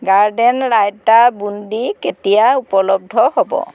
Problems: none marked